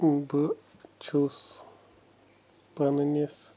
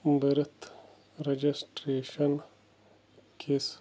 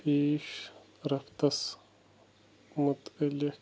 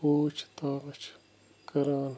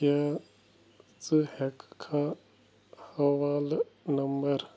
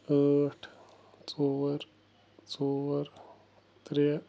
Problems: none marked